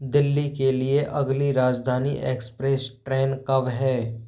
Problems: constant background noise